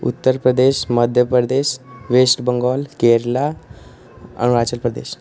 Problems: constant background noise